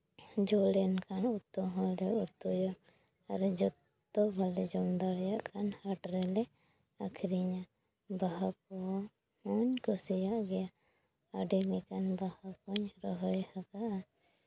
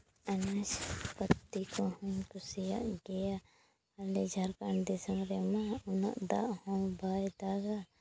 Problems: background sounds at intervals